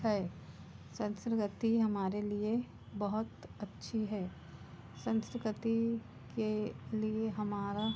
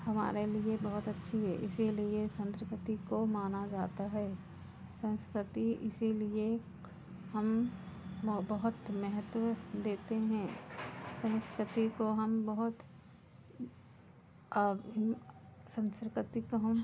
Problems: constant background noise, background conversations at intervals